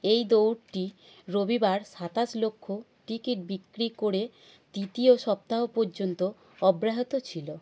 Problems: none marked